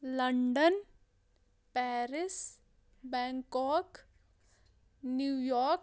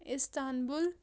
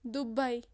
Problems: background sounds at intervals